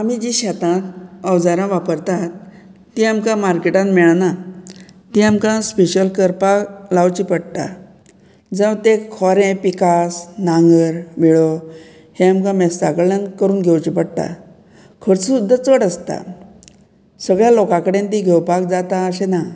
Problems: none marked